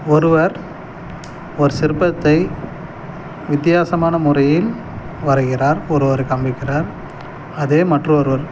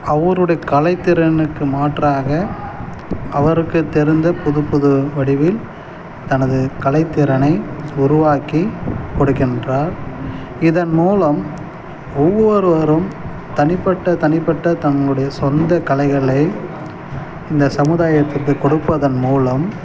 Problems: constant background noise